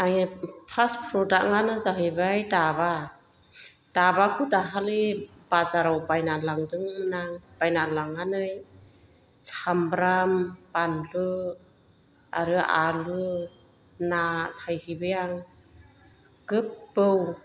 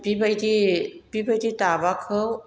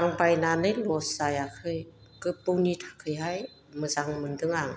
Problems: none marked